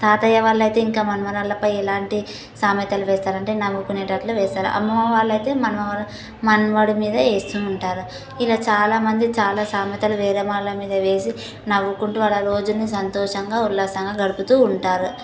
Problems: constant background noise